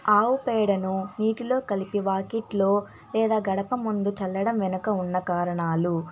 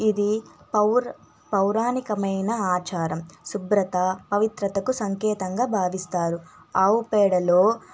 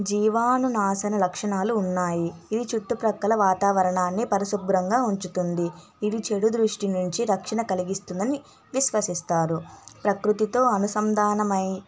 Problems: constant background noise